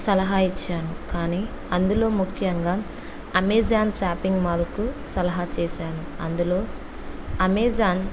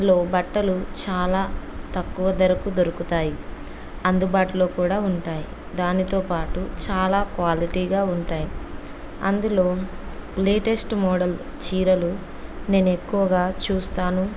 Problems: none marked